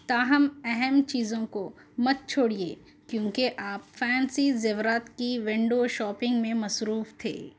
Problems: none marked